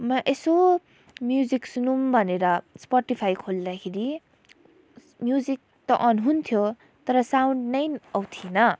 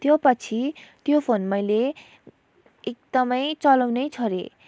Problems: none marked